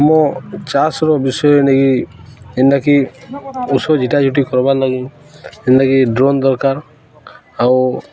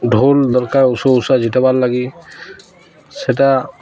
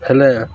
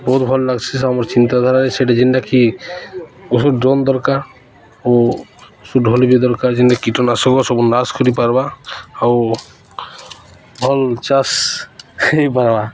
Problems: constant background noise, continuous background conversations